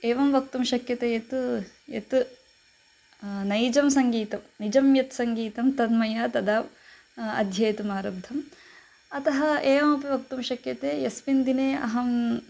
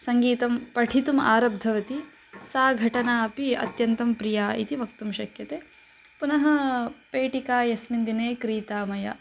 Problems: background sounds at intervals